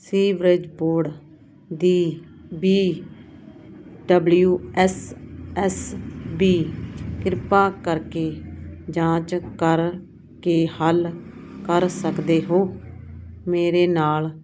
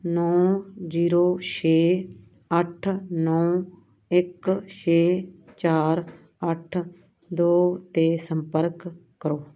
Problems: none marked